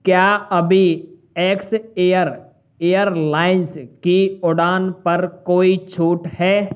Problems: none marked